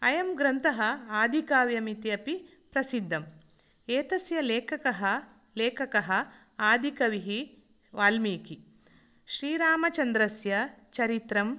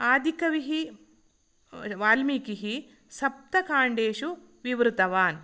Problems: none marked